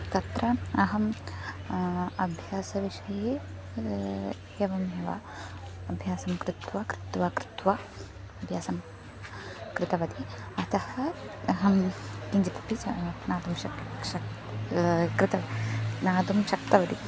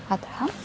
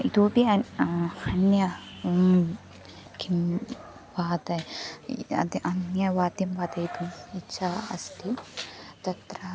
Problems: constant background noise, continuous background conversations